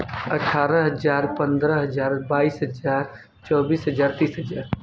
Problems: background sounds at intervals